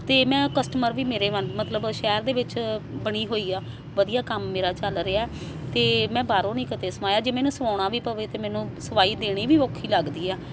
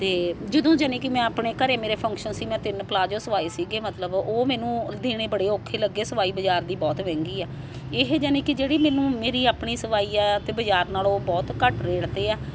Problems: constant background noise